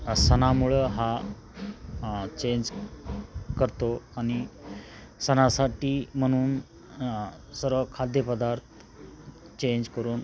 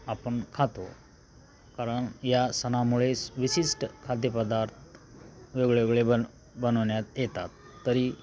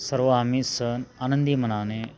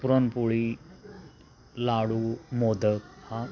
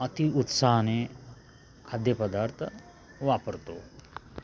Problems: constant background noise, background conversations at intervals